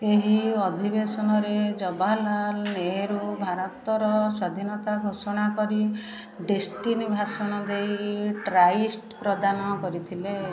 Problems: continuous background conversations